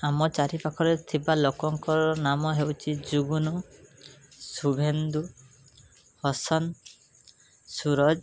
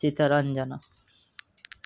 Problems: background sounds at intervals